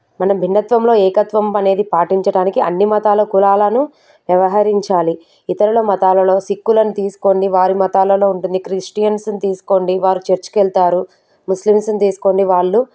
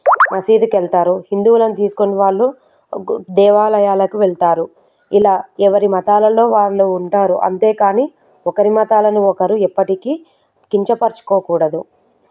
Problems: background sounds at intervals